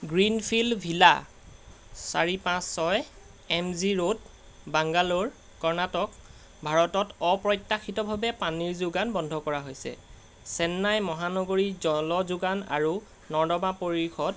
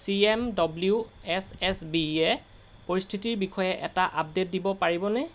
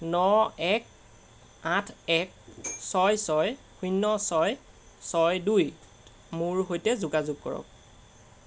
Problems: none marked